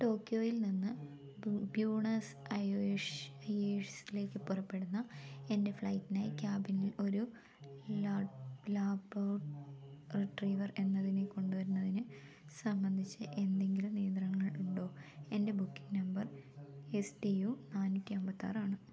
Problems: low volume